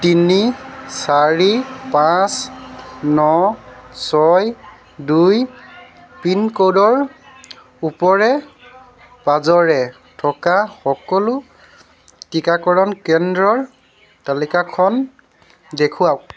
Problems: constant background noise